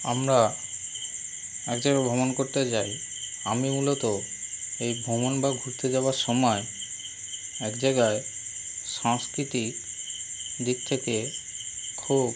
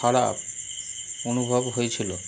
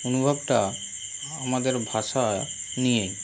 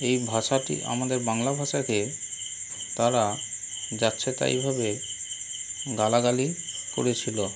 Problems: constant background noise